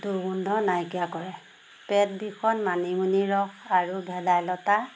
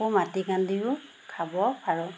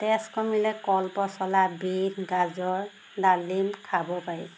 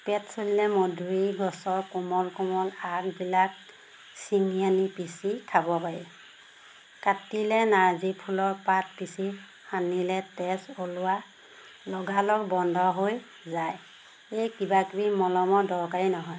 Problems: constant background noise